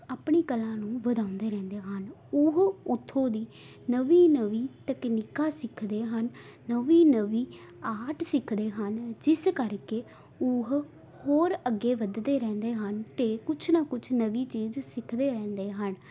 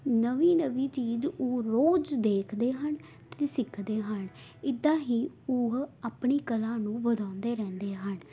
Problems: none marked